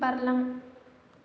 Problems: low volume